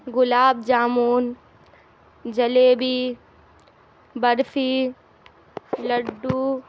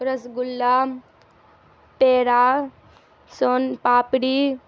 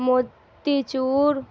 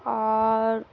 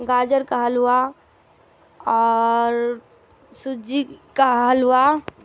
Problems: constant background noise